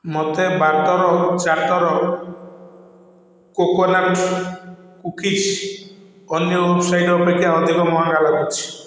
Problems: constant background noise, echo